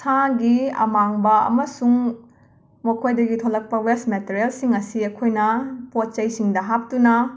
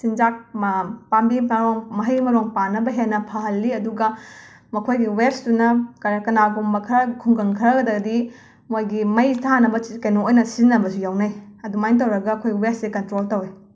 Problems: none marked